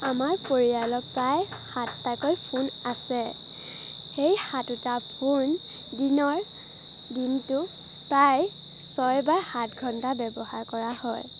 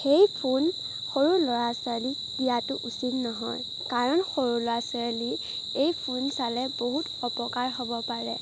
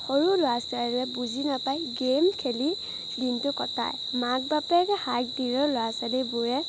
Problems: none marked